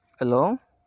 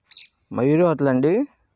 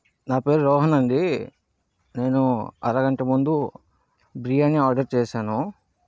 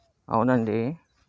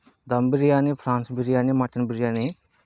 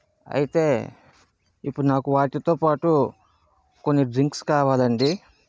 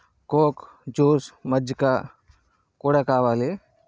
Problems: background sounds at intervals